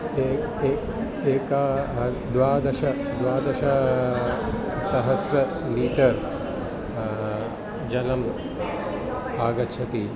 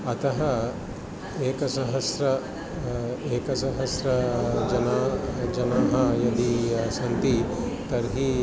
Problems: constant background noise, continuous background conversations